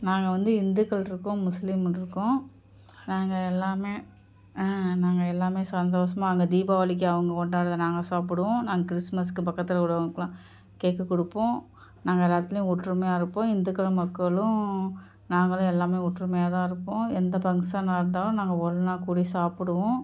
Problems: none marked